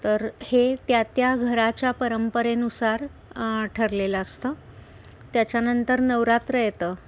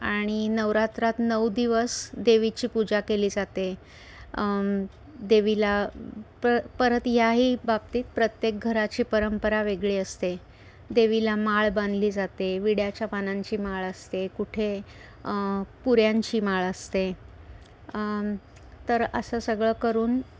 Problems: none marked